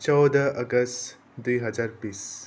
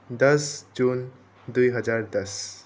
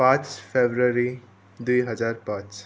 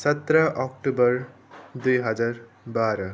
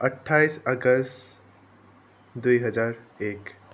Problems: background conversations at intervals